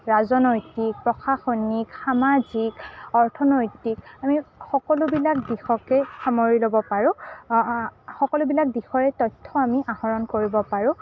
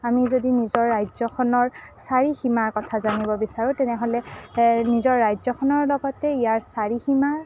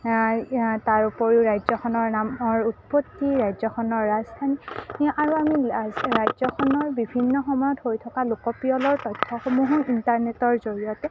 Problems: none marked